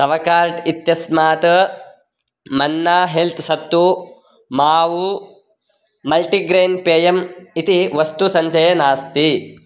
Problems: constant background noise